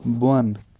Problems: background sounds at intervals